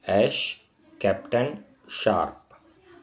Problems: constant background noise